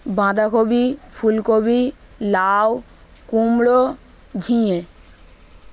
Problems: none marked